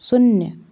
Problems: background sounds at intervals